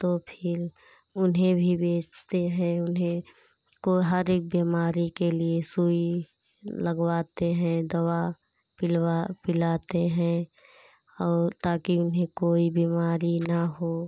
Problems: constant background noise